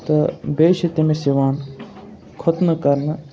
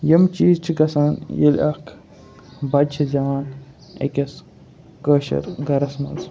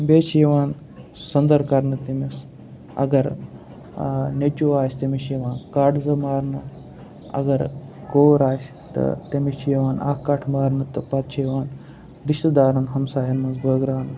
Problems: background sounds at intervals, background conversations at intervals